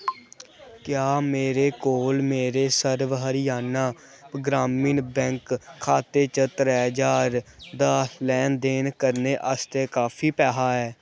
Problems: background sounds at intervals